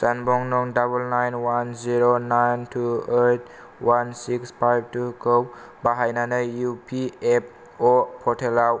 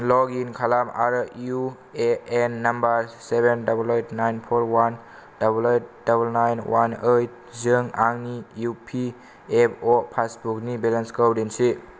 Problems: none marked